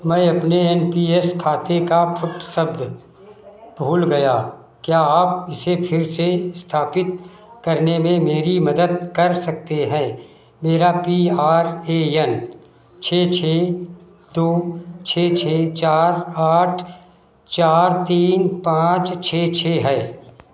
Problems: constant background noise